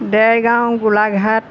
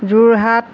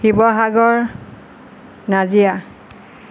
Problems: none marked